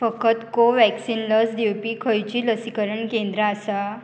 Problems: constant background noise